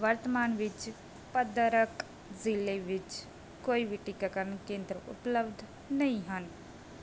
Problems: background sounds at intervals